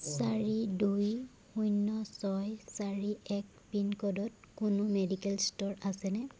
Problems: constant background noise